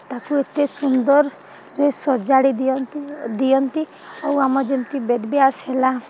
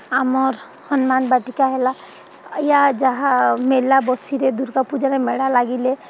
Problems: none marked